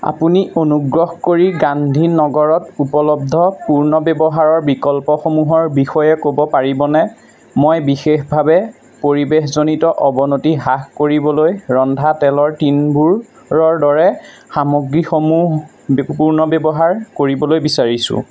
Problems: constant background noise, background conversations at intervals